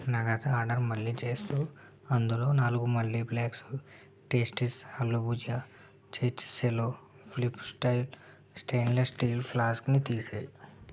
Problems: low volume